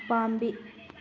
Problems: none marked